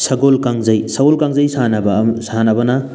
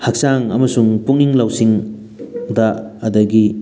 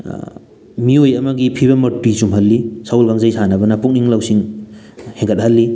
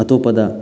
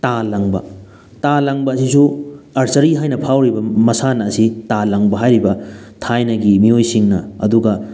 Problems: background sounds at intervals